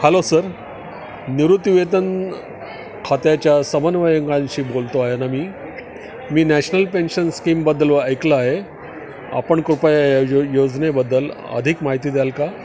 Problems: constant background noise, background conversations at intervals